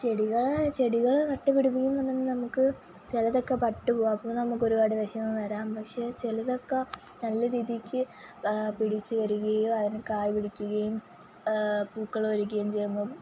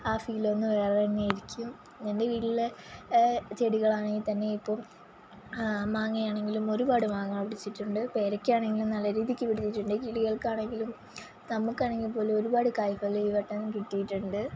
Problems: constant background noise